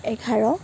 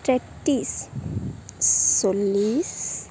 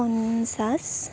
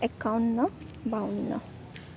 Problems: none marked